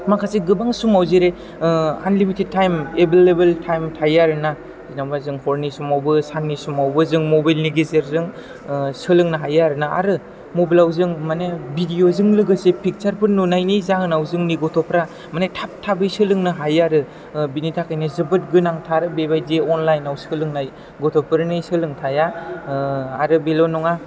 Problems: low volume